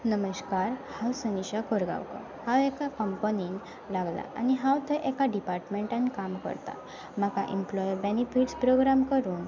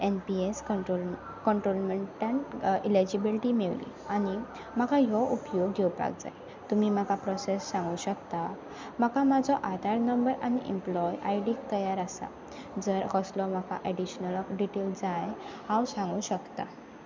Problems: constant background noise